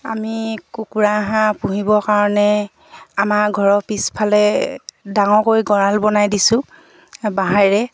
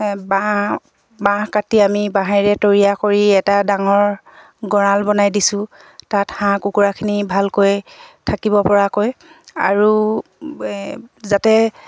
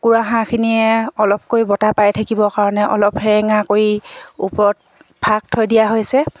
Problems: none marked